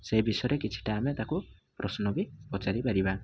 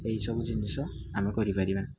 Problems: low volume